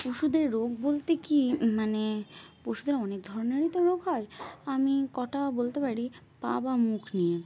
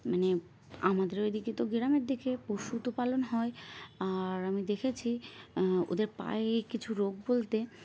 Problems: constant background noise